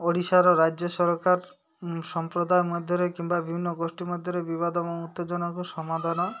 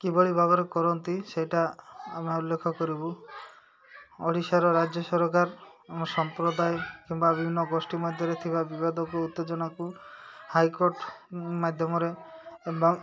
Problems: none marked